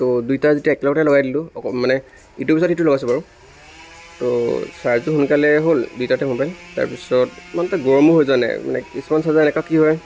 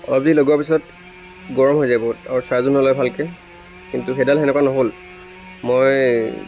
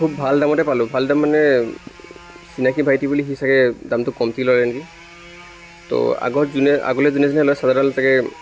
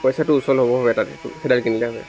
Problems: constant background noise